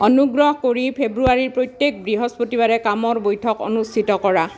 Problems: continuous background conversations